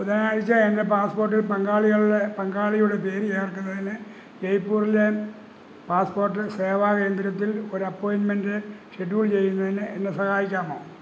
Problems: low volume